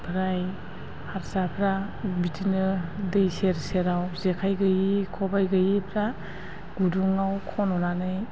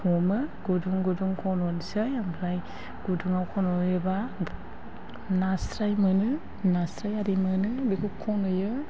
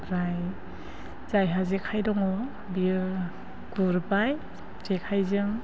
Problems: low volume